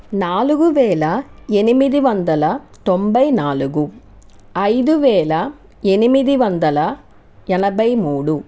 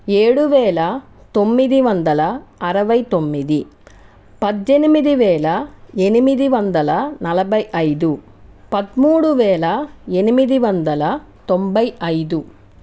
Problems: none marked